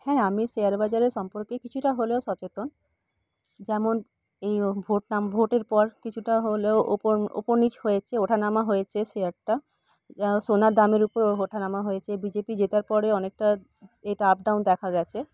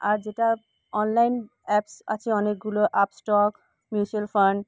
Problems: none marked